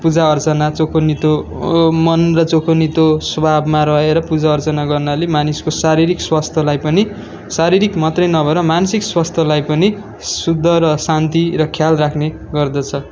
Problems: background sounds at intervals